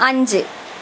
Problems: constant background noise